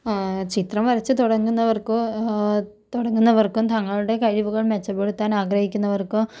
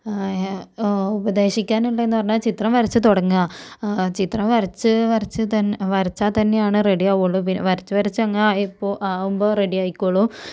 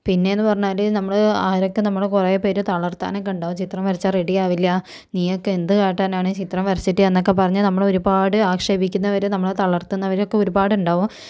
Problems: low volume